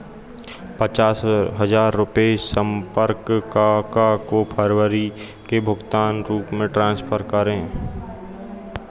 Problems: constant background noise